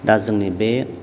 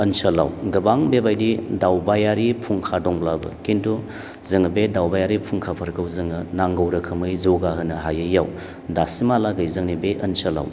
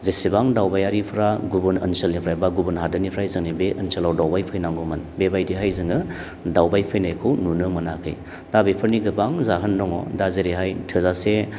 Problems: none marked